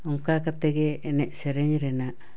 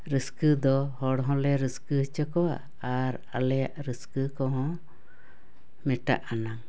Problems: none marked